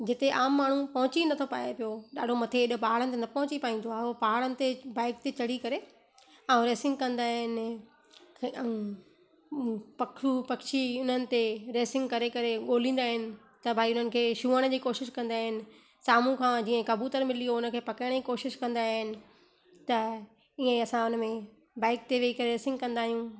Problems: constant background noise, echo